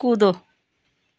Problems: background sounds at intervals, background conversations at intervals